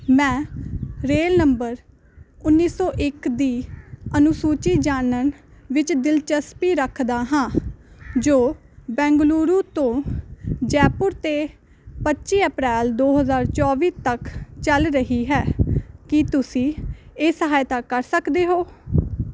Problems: constant background noise